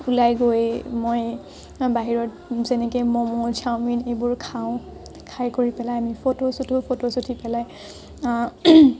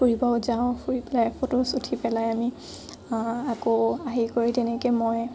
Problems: none marked